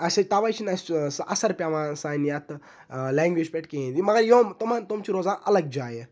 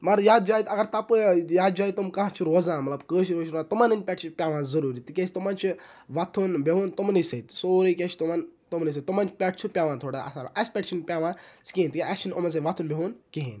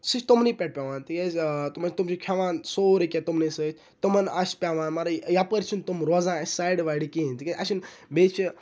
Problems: none marked